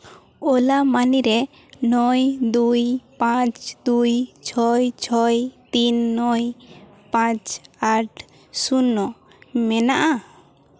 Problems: constant background noise, background conversations at intervals, echo